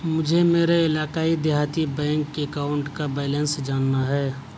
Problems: constant background noise